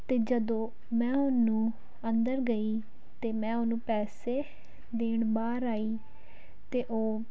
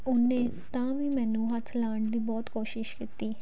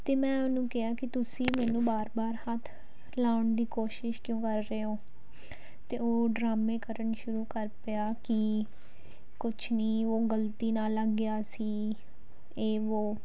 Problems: background sounds at intervals